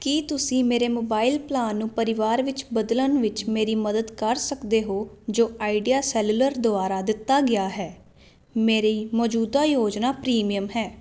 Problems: constant background noise